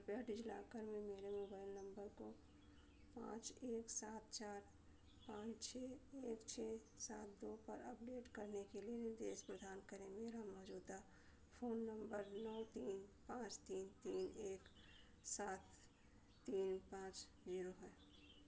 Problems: constant background noise, low volume